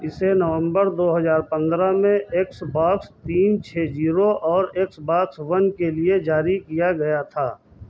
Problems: constant background noise, background conversations at intervals